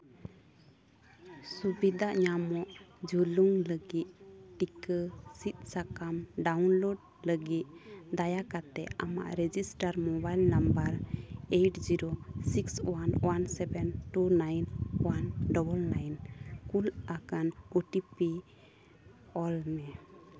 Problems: constant background noise, background conversations at intervals